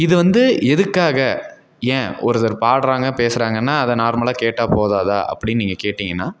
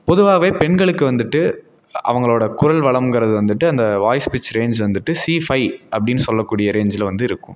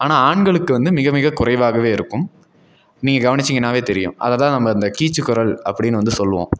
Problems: none marked